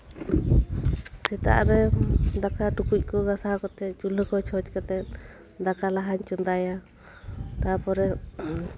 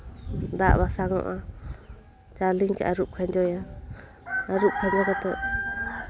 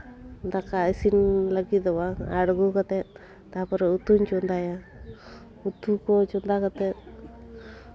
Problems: background conversations at intervals